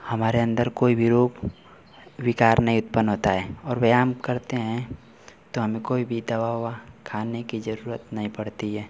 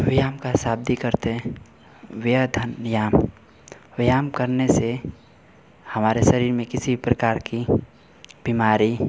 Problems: none marked